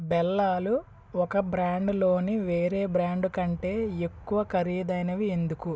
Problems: none marked